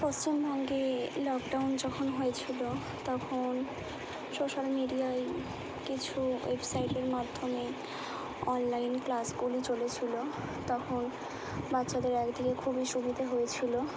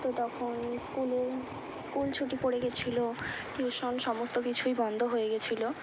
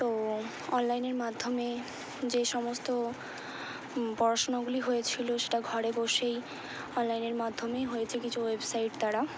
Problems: low volume